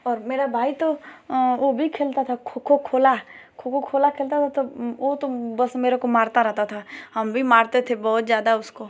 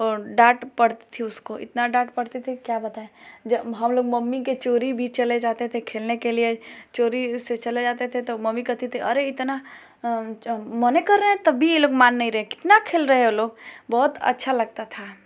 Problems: none marked